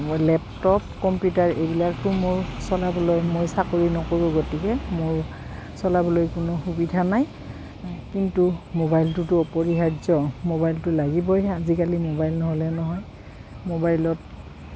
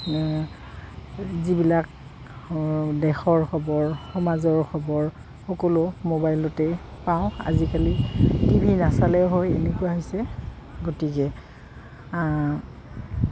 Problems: background sounds at intervals